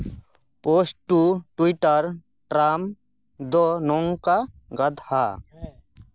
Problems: background conversations at intervals